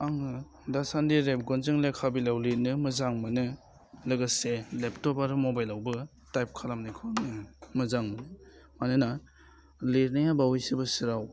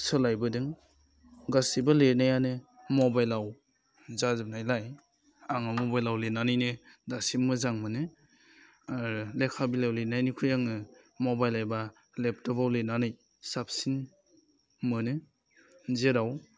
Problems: constant background noise